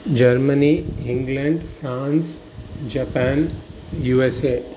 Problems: constant background noise